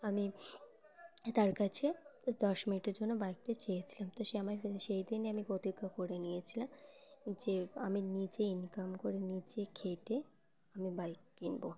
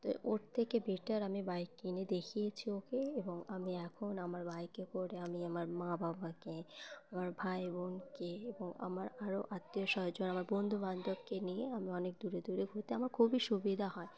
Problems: background sounds at intervals